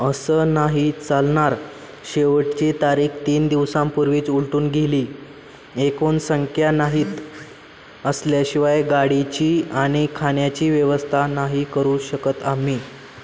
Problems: none marked